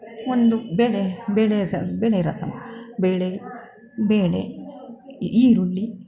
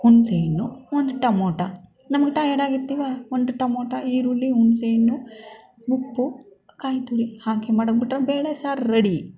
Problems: background sounds at intervals